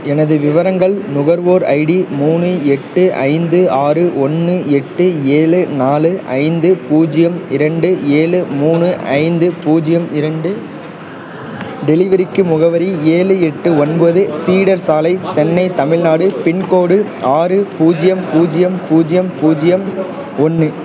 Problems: constant background noise, continuous background conversations